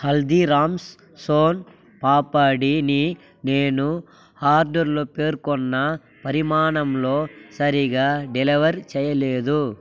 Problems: constant background noise